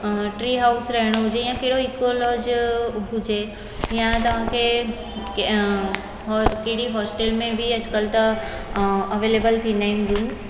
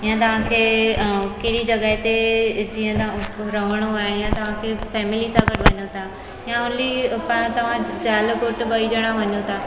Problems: constant background noise, echo